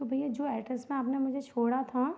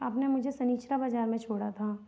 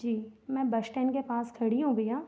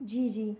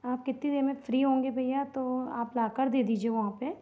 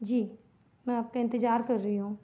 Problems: none marked